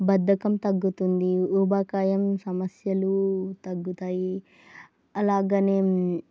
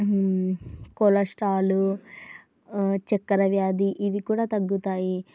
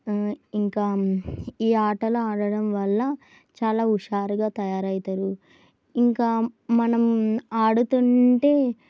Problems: none marked